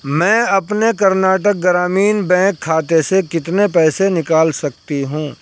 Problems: background sounds at intervals